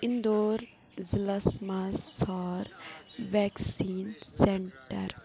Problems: constant background noise